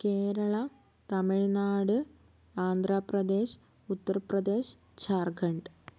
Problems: none marked